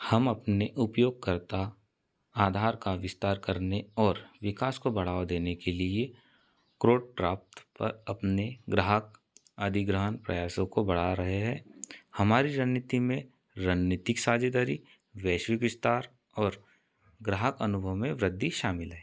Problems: none marked